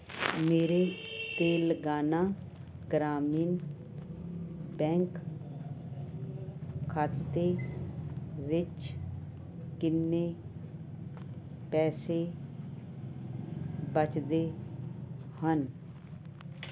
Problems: constant background noise